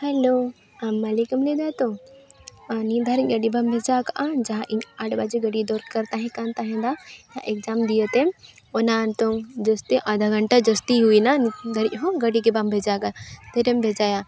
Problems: none marked